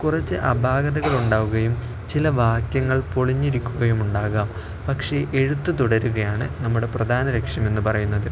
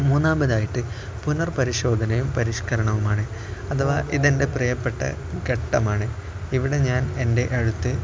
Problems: none marked